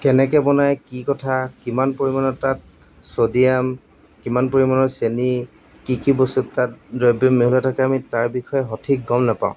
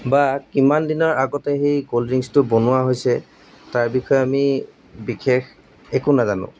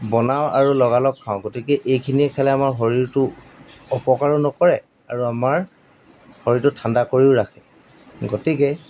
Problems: background sounds at intervals